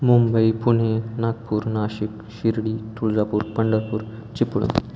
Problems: constant background noise